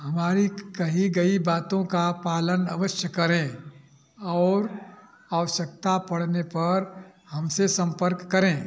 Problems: none marked